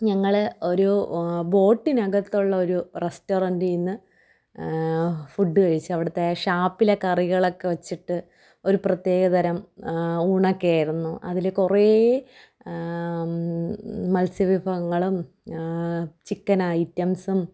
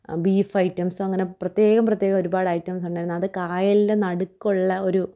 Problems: none marked